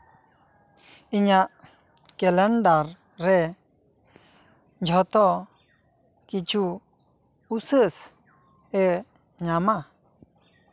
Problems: none marked